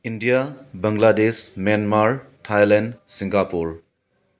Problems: none marked